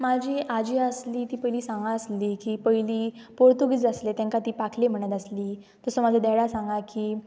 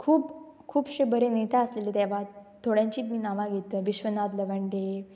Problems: none marked